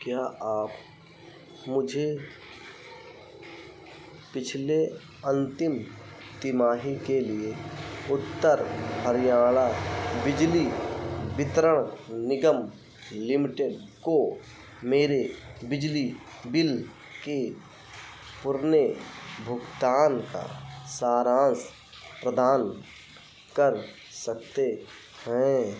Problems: none marked